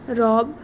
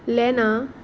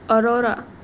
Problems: none marked